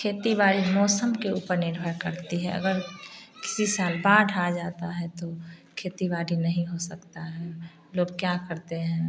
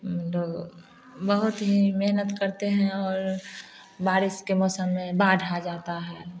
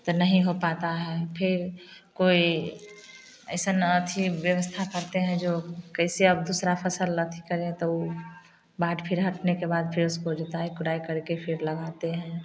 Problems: constant background noise